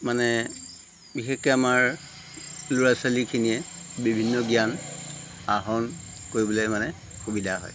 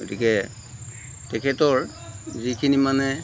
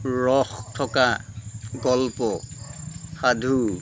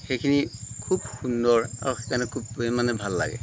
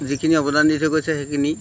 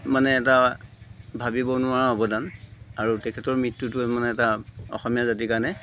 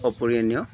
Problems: constant background noise